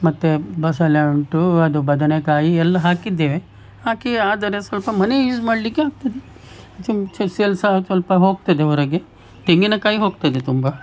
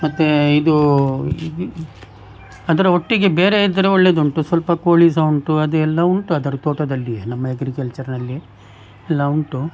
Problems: background sounds at intervals